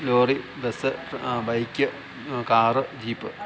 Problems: constant background noise